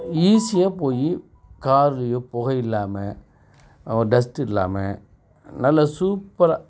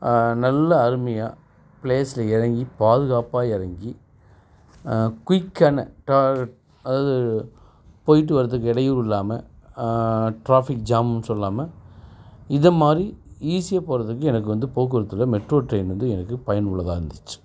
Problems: background sounds at intervals